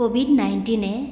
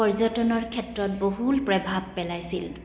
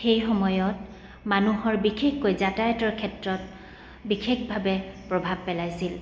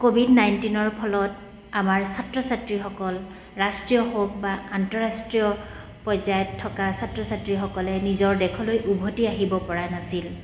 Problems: none marked